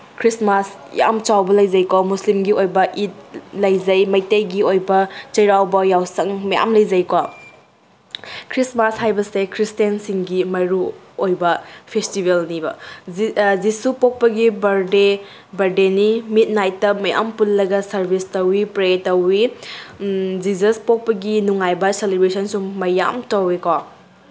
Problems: background sounds at intervals